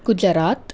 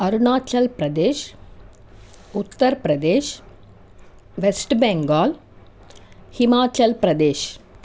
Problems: constant background noise